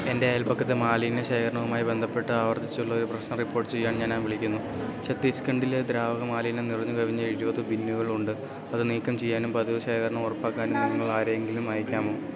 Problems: background sounds at intervals, low volume